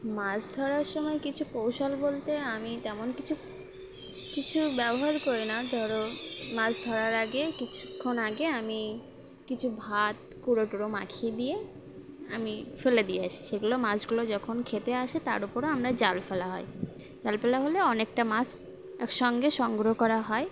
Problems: constant background noise